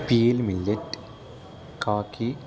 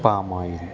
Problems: constant background noise, continuous background conversations